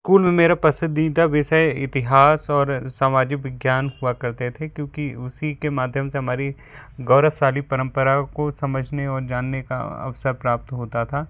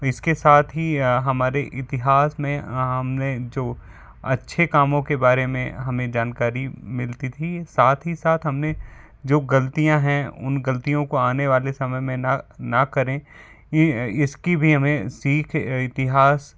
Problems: background sounds at intervals